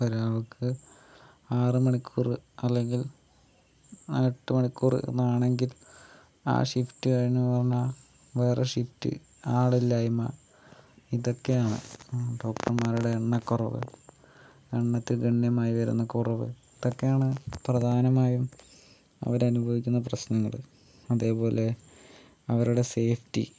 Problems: none marked